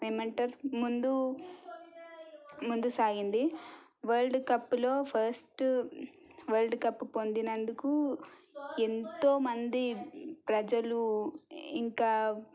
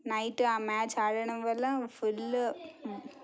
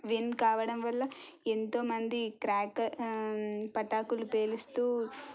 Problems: low volume